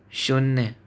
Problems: none marked